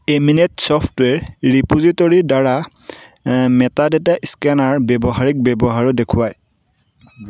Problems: none marked